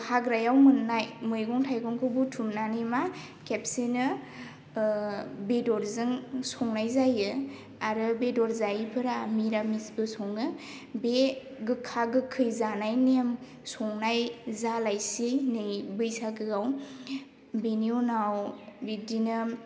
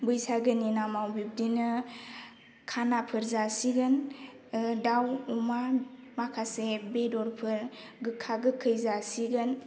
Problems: none marked